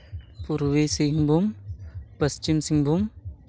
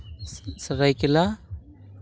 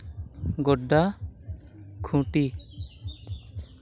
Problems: constant background noise